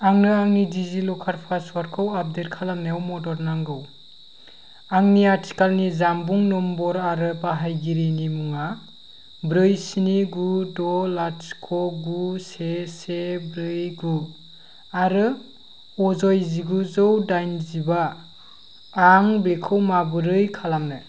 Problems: none marked